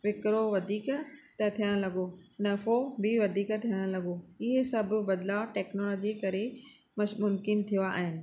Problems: none marked